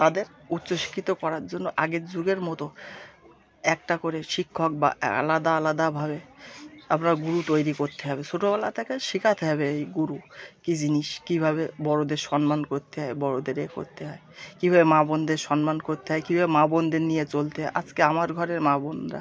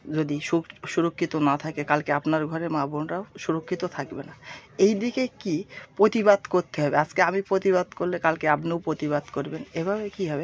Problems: none marked